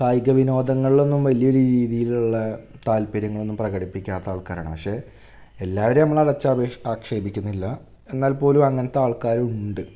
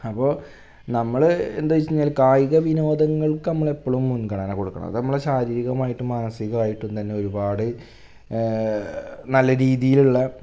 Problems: none marked